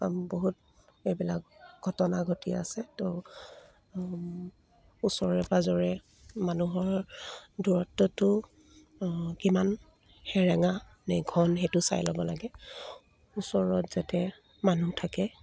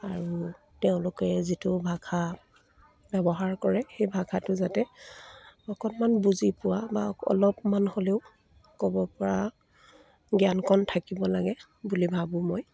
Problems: none marked